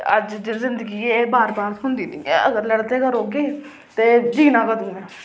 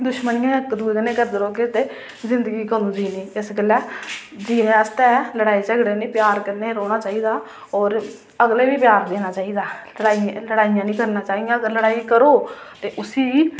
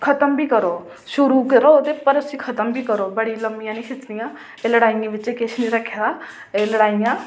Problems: none marked